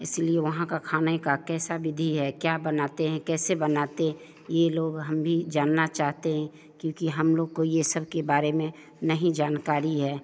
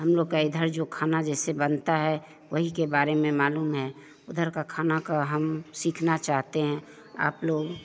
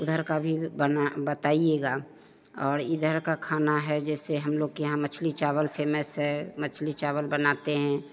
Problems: none marked